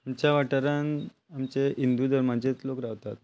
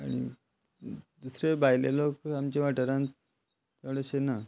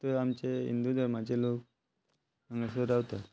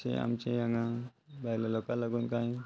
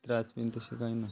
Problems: constant background noise